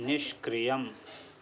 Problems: background sounds at intervals